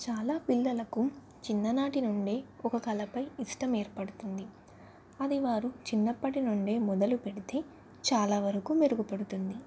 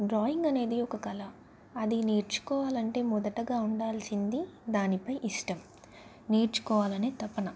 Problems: none marked